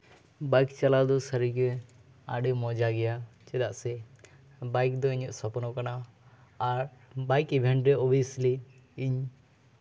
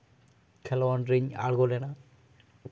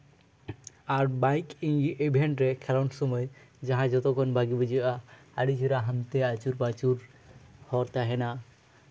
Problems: background sounds at intervals